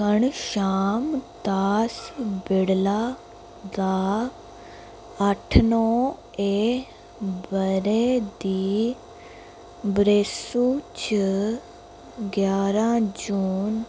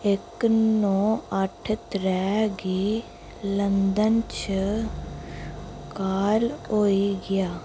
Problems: constant background noise